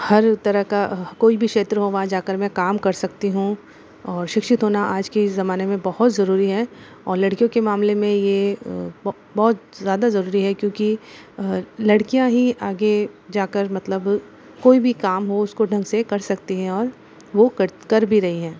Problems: constant background noise